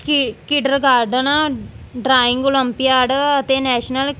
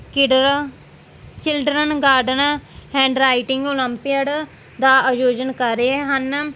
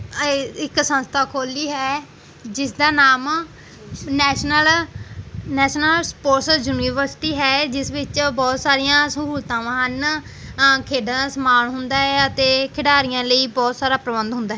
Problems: background sounds at intervals